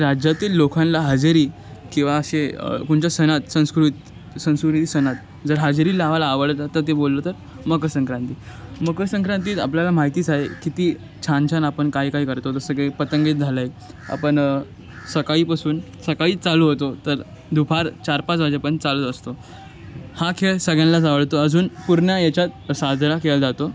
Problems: none marked